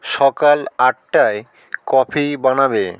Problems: none marked